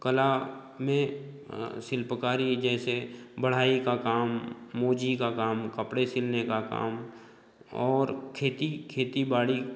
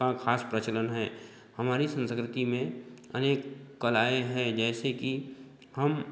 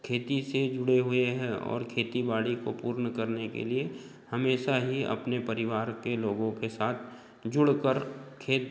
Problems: constant background noise, background conversations at intervals